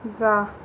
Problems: none marked